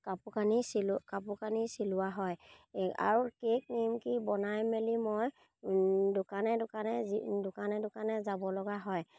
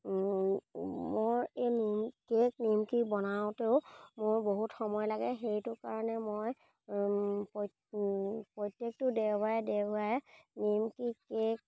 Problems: none marked